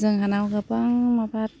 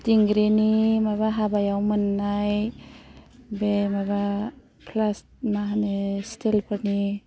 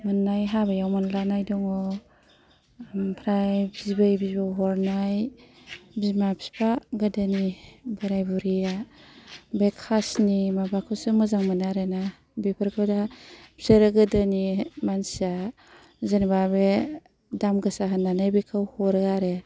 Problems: low volume